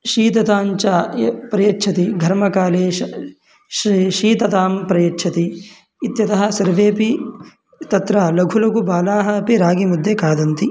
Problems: background sounds at intervals